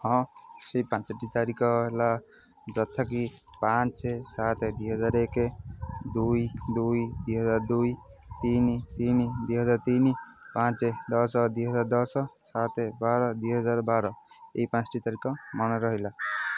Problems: constant background noise